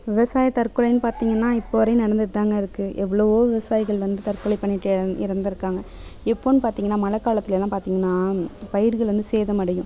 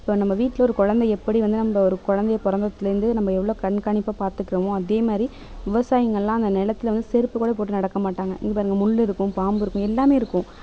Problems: background sounds at intervals, background conversations at intervals